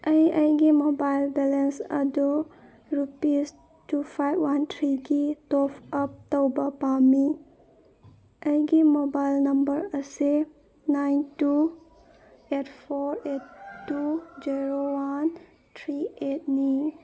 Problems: none marked